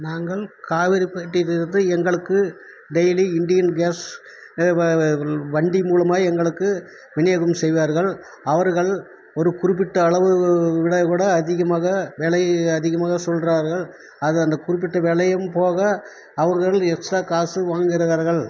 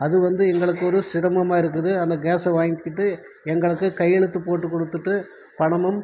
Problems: constant background noise, background conversations at intervals